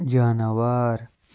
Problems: none marked